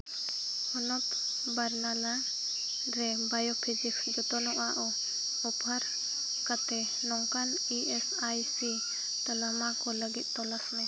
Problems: constant background noise, low volume